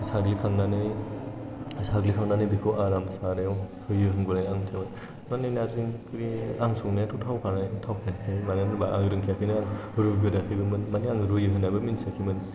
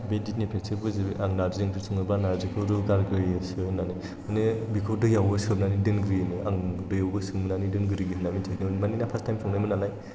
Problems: constant background noise